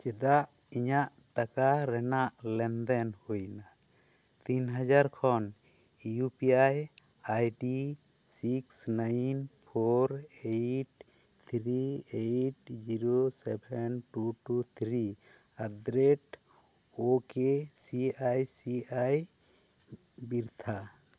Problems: none marked